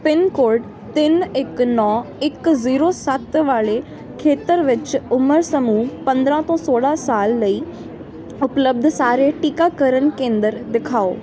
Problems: constant background noise